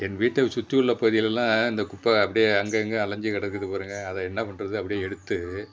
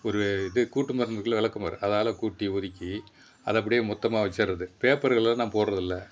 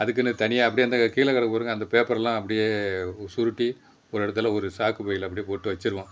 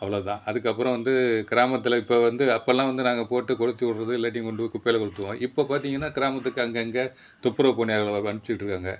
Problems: background sounds at intervals